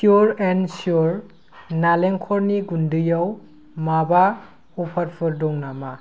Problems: none marked